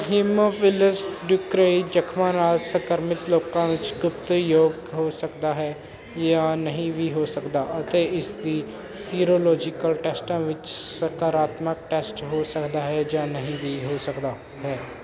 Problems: none marked